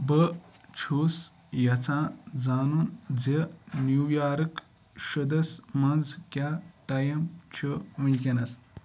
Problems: background sounds at intervals